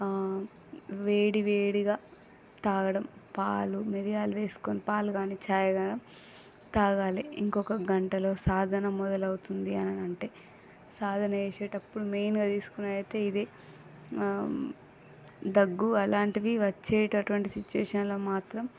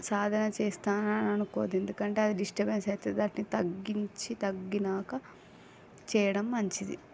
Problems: background conversations at intervals, low volume